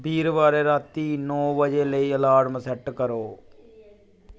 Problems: none marked